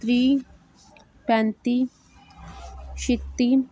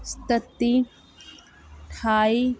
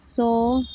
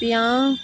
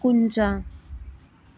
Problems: none marked